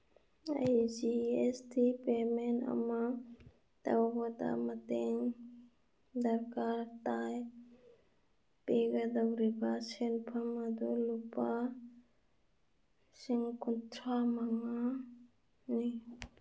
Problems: none marked